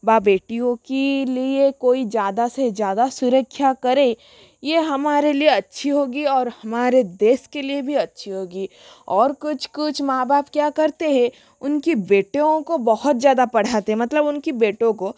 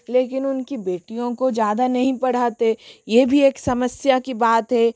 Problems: none marked